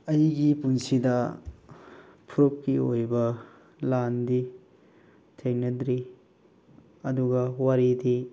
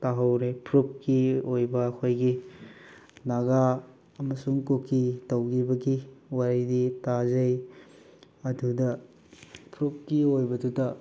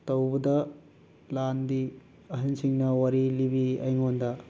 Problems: constant background noise